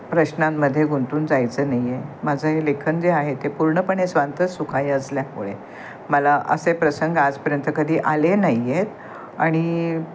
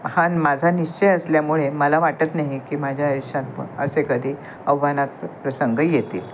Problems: constant background noise